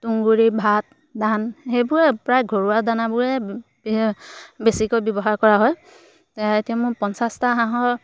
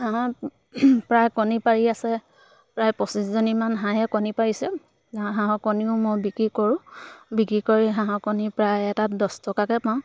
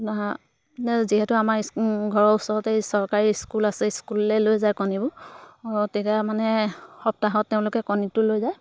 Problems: background sounds at intervals